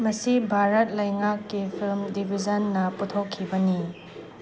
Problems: constant background noise